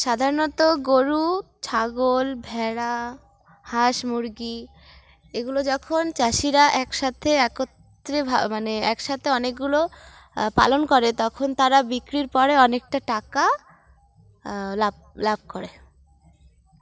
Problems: background sounds at intervals